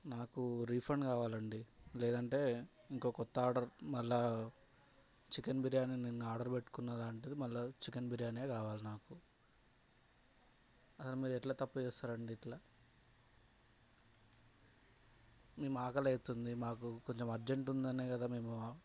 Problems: low volume